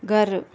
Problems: none marked